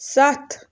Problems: background sounds at intervals